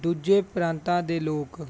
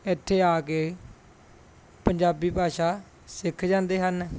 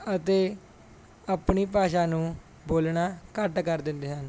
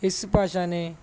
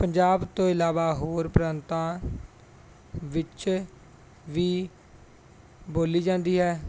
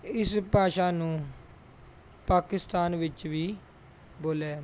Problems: background sounds at intervals